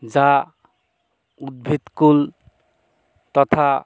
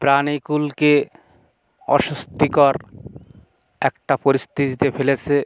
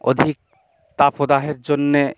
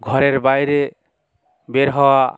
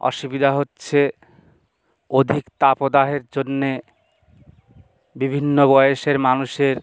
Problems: constant background noise